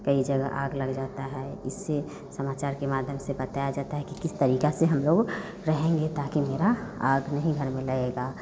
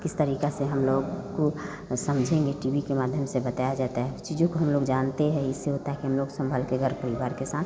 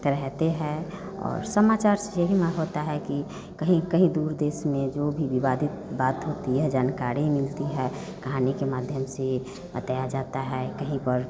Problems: none marked